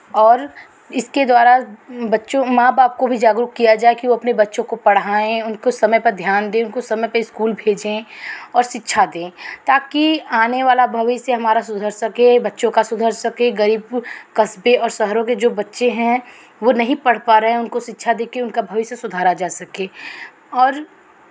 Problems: none marked